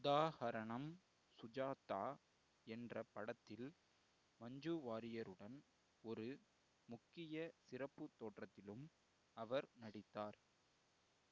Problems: low volume